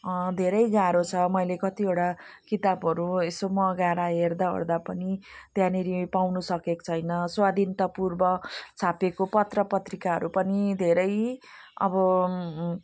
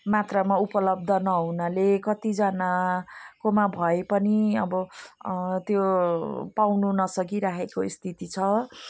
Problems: none marked